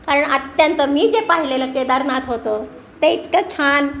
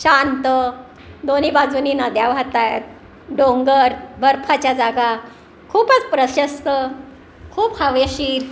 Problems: none marked